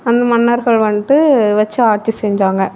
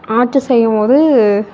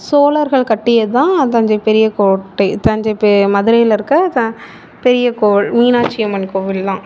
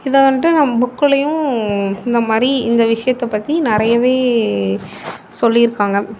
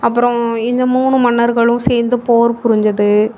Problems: none marked